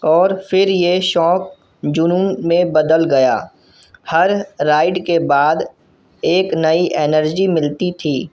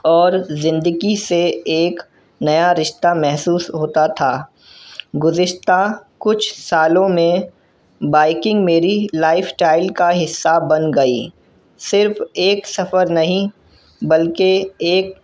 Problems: none marked